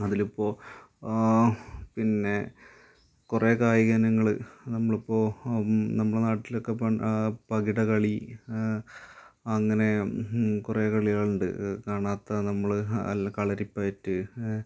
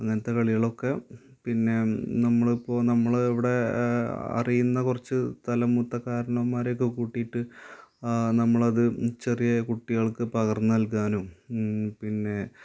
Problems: constant background noise, low volume